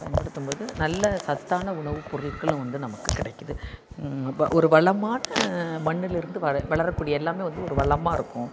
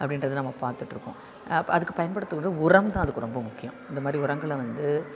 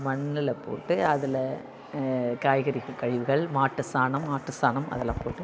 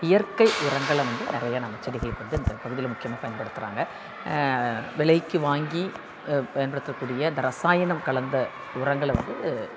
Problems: constant background noise, continuous background conversations